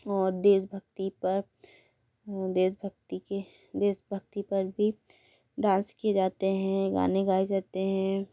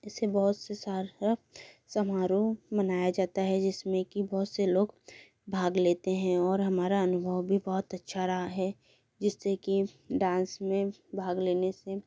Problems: background sounds at intervals